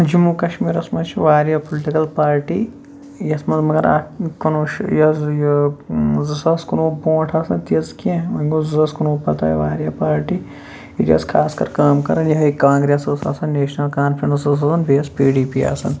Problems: background sounds at intervals